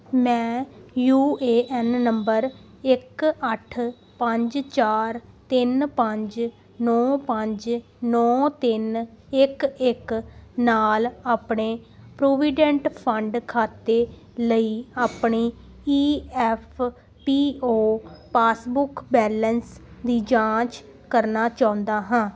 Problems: constant background noise